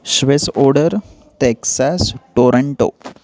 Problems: constant background noise, continuous background conversations